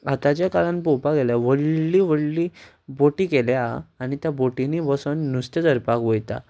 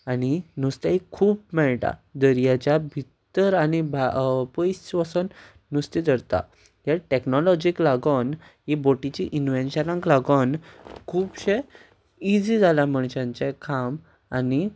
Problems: background sounds at intervals